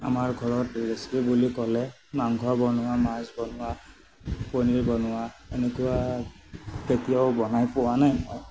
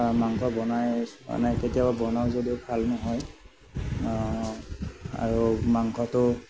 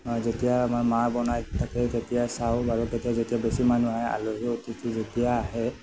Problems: background sounds at intervals